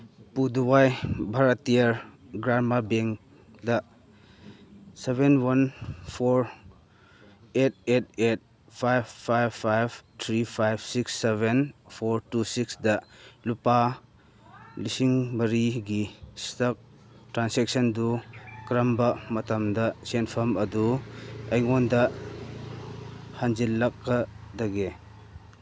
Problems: background sounds at intervals